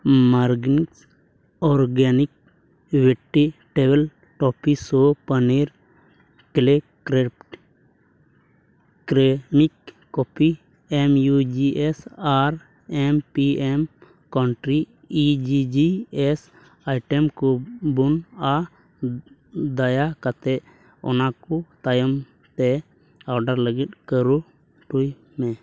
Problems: background sounds at intervals, low volume